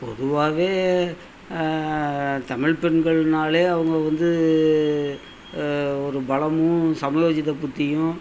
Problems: none marked